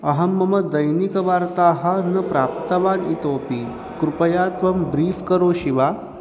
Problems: constant background noise